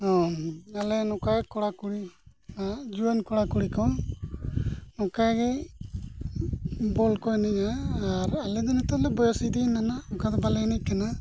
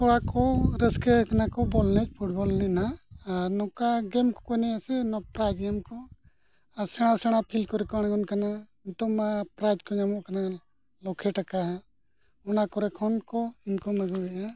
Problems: none marked